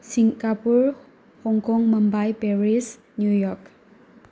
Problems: background sounds at intervals